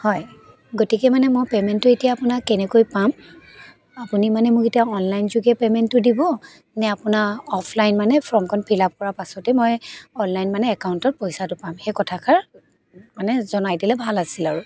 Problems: constant background noise, background conversations at intervals